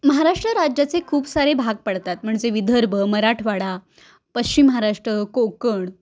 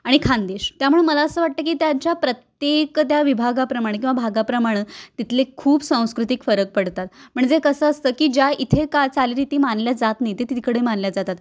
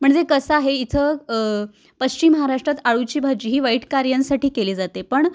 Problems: constant background noise